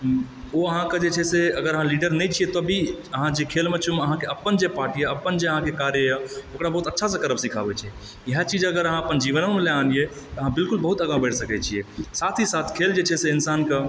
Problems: background sounds at intervals